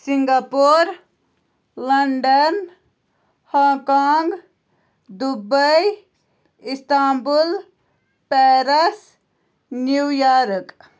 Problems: constant background noise